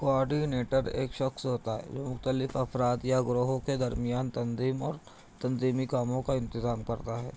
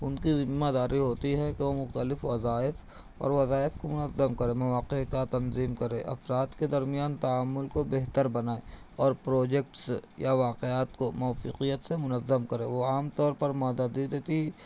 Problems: constant background noise, low volume